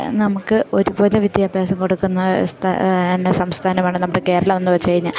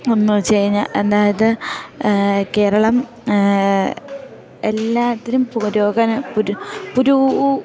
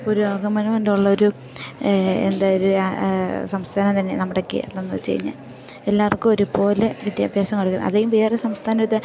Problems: background sounds at intervals